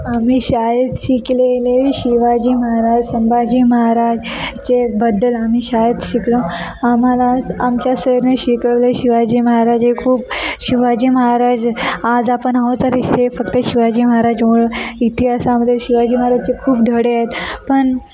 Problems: constant background noise, continuous background conversations